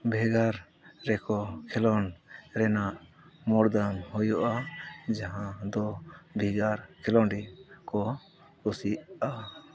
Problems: none marked